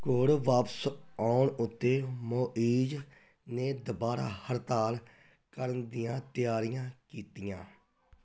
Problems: background conversations at intervals